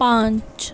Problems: background sounds at intervals